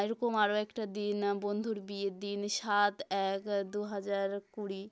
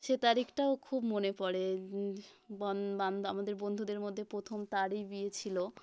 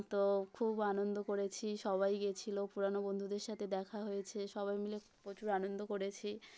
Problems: background sounds at intervals